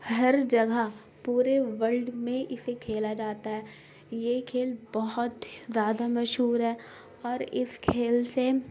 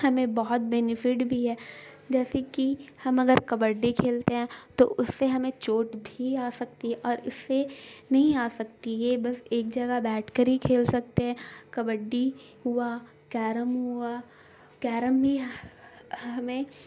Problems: constant background noise